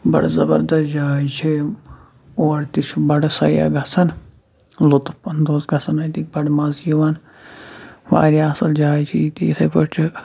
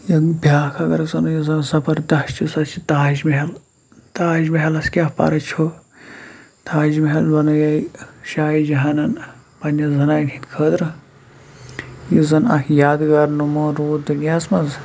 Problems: background sounds at intervals